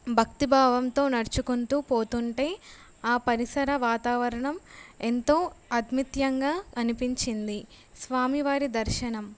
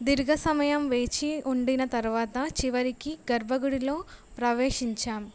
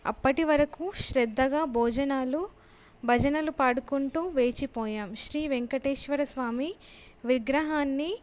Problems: none marked